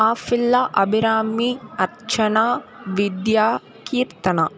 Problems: constant background noise